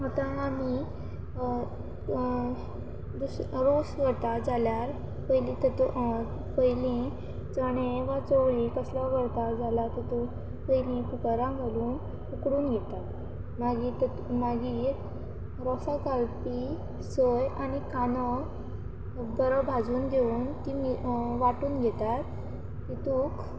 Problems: none marked